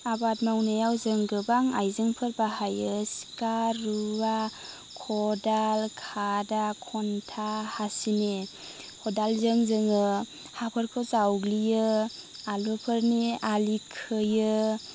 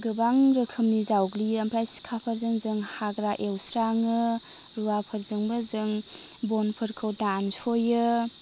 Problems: none marked